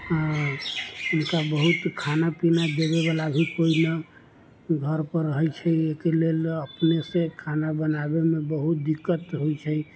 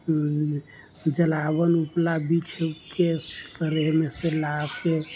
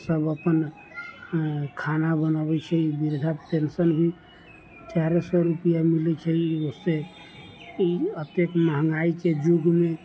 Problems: none marked